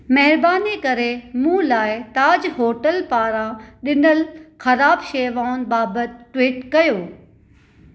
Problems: none marked